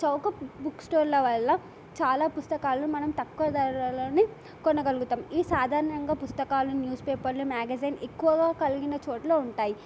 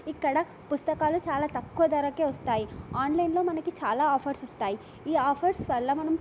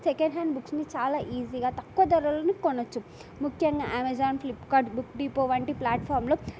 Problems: none marked